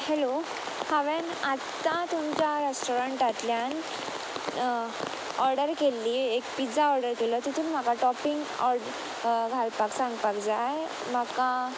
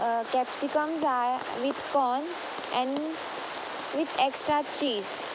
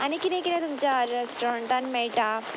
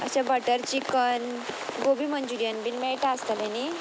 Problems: none marked